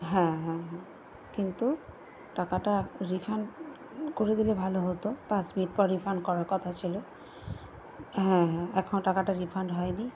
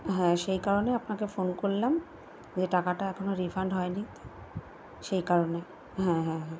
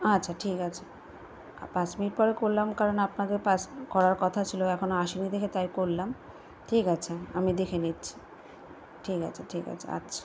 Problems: none marked